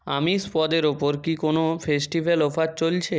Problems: none marked